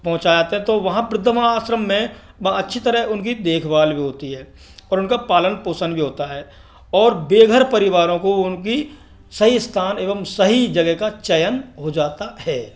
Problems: background sounds at intervals